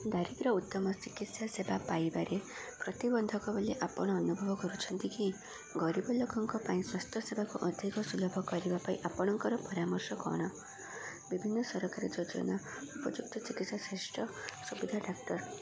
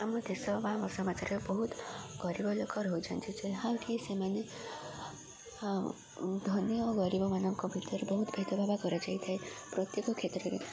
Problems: constant background noise, continuous background conversations